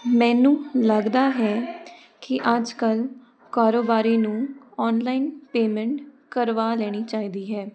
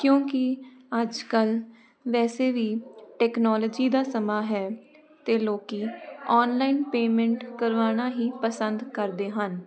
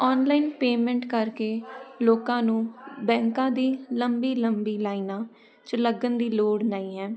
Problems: constant background noise